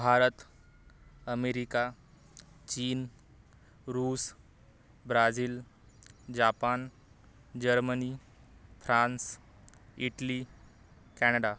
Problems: none marked